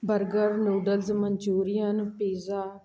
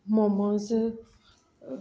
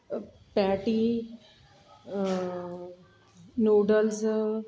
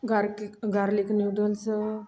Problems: background sounds at intervals